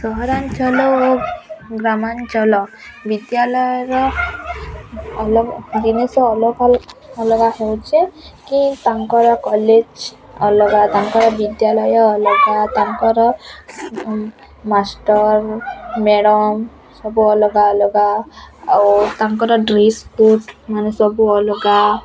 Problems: constant background noise, continuous background conversations